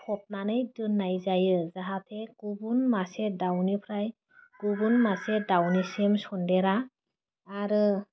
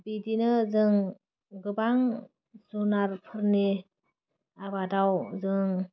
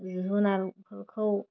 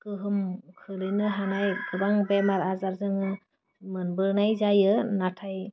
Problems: none marked